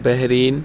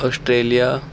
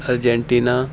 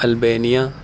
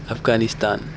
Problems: constant background noise